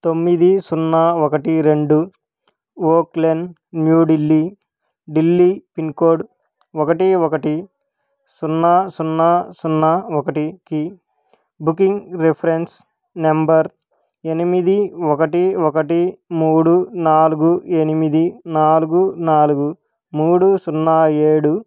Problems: background sounds at intervals